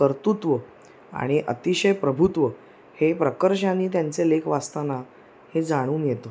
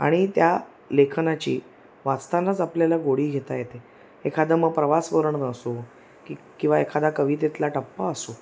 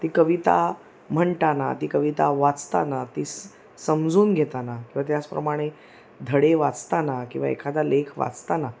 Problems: none marked